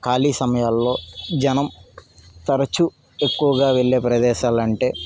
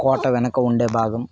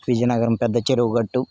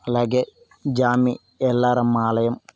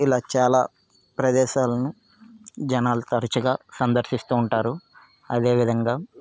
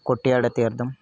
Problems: background sounds at intervals, background conversations at intervals